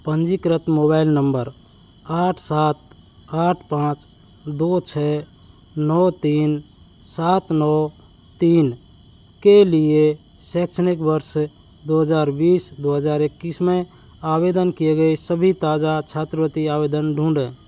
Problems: none marked